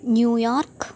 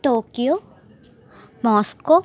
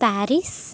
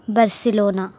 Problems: constant background noise